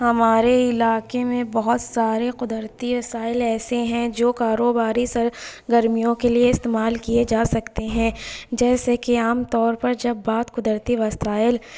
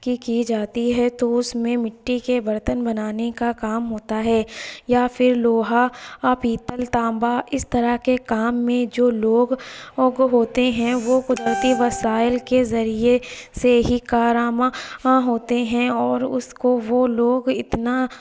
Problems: background sounds at intervals